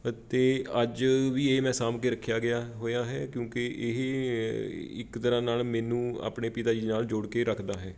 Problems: constant background noise